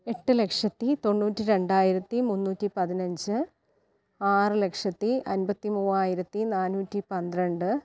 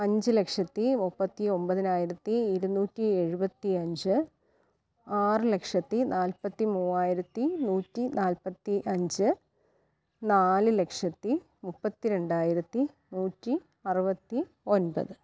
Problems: low volume